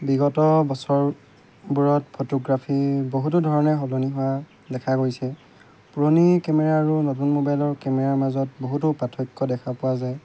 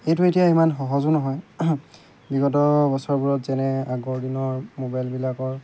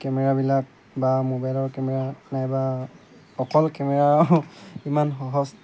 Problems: constant background noise